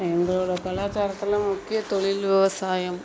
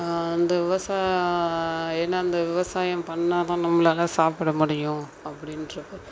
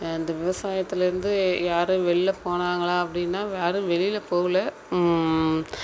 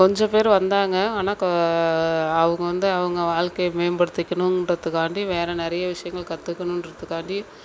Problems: none marked